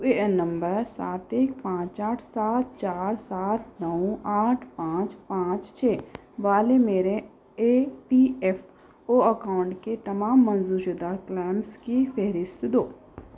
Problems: background sounds at intervals